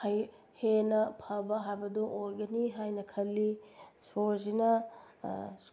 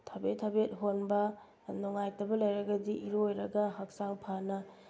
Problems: none marked